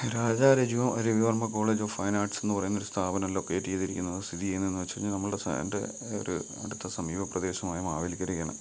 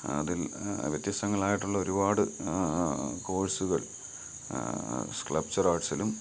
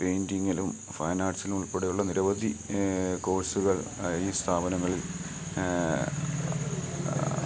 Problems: background sounds at intervals